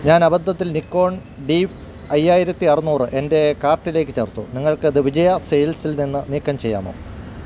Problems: constant background noise